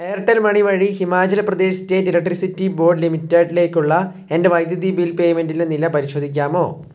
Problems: low volume